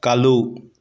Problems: none marked